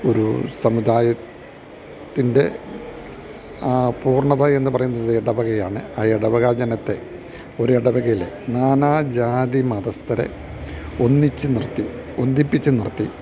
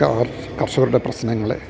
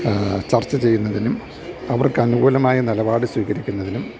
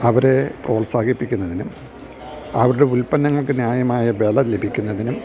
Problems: none marked